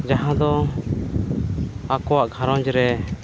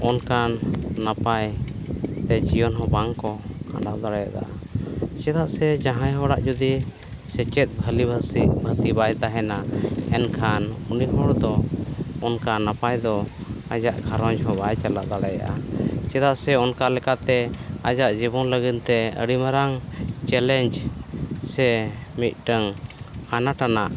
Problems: none marked